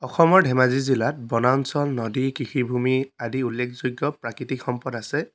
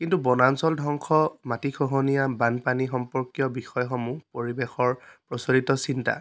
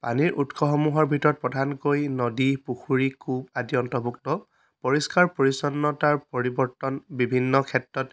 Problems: none marked